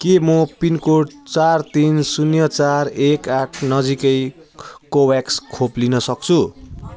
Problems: constant background noise